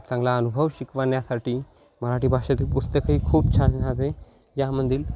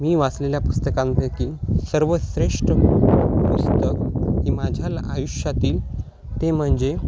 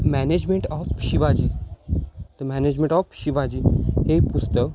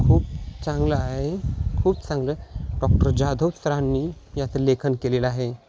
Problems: constant background noise